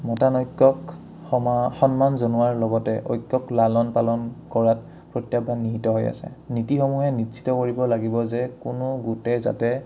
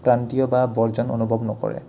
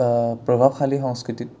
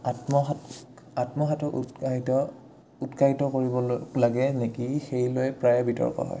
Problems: none marked